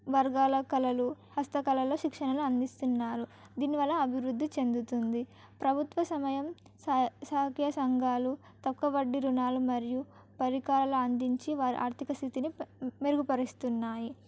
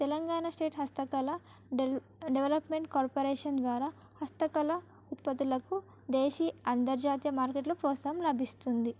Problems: background sounds at intervals